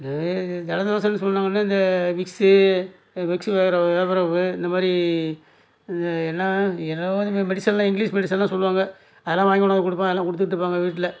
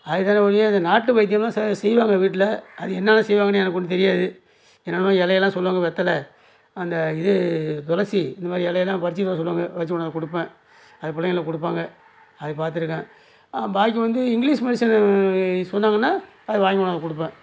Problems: background sounds at intervals